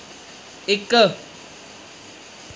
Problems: constant background noise